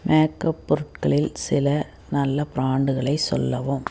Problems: background sounds at intervals